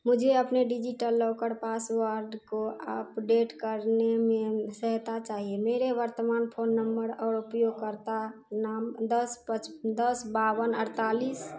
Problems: none marked